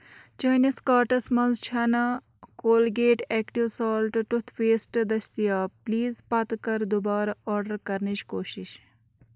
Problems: background sounds at intervals